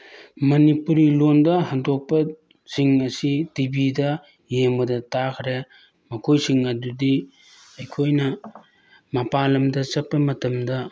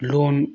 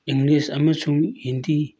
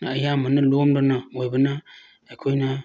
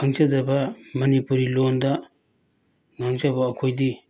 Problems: background sounds at intervals